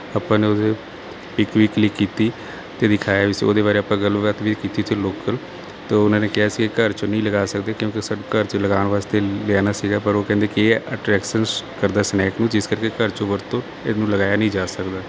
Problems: none marked